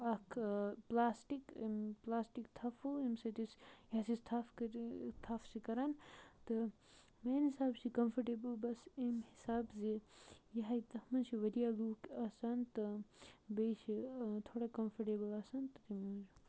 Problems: background sounds at intervals, low volume